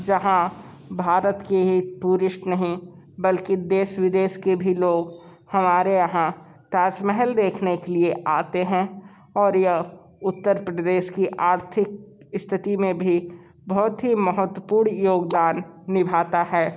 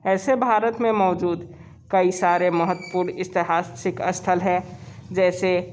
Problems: background sounds at intervals, background conversations at intervals